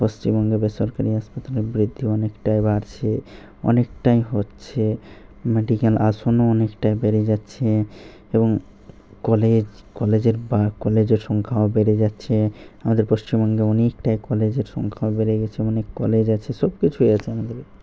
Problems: none marked